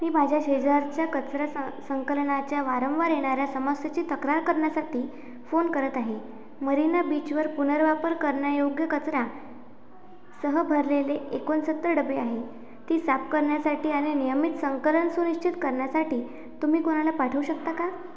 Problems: constant background noise